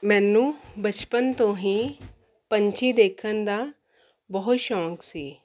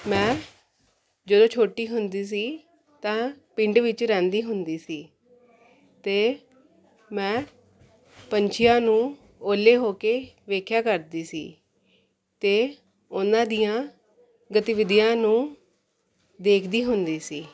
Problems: none marked